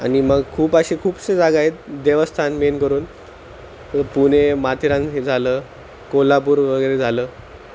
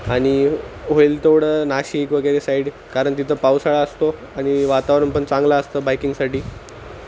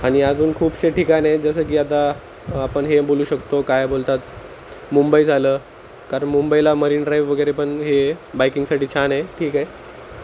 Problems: constant background noise